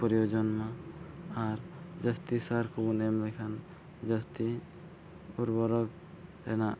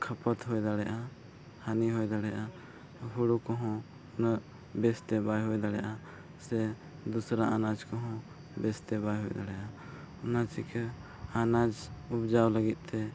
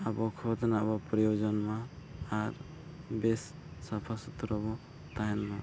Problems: low volume